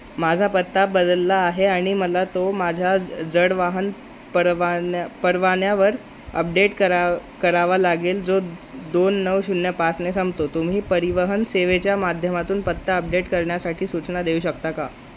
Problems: constant background noise